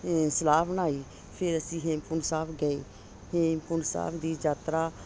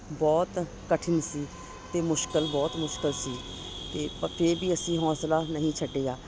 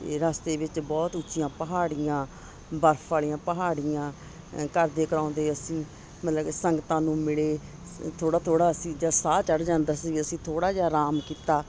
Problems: constant background noise